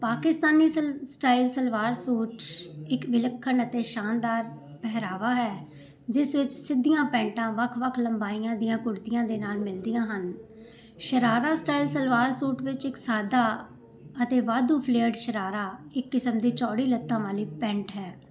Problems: none marked